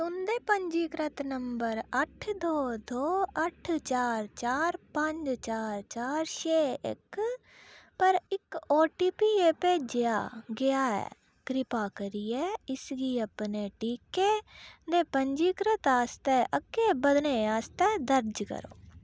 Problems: none marked